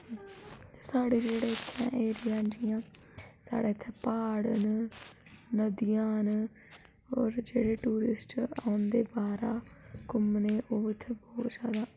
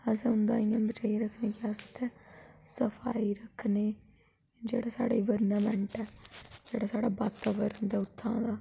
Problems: constant background noise